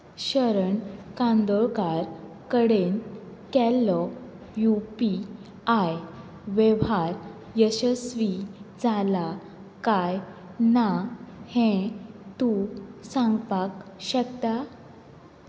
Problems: none marked